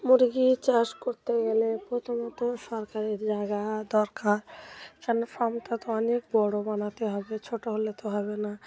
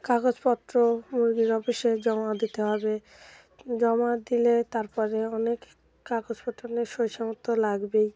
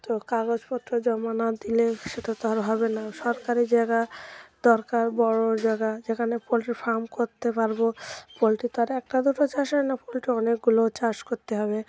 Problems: background sounds at intervals, continuous background conversations